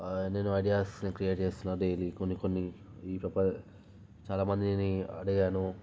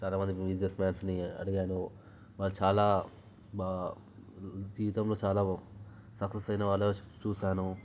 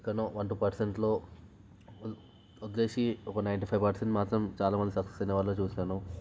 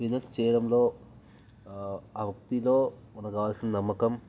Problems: low volume